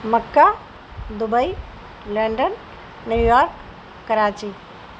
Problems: constant background noise